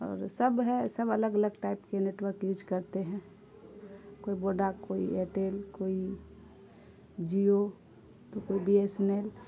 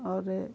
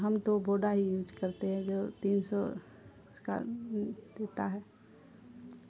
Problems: constant background noise